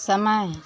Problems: none marked